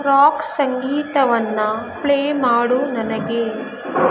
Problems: constant background noise